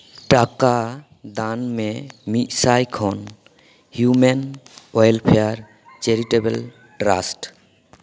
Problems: background sounds at intervals, echo